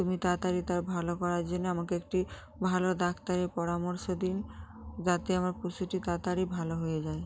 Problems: none marked